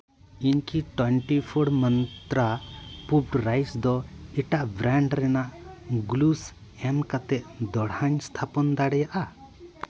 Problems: none marked